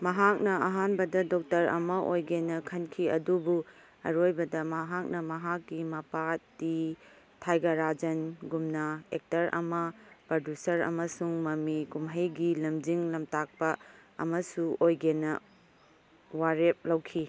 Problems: none marked